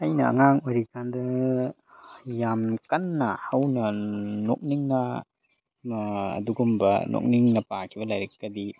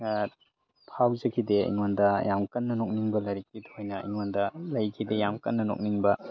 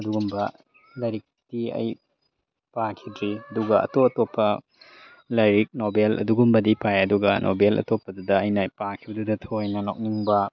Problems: background conversations at intervals